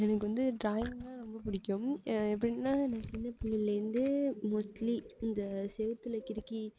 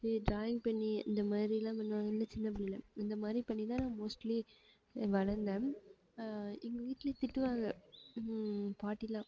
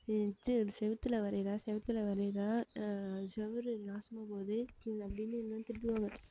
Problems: low volume